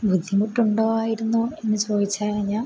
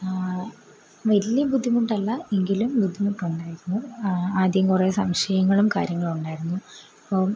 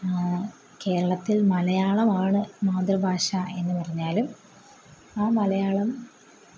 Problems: constant background noise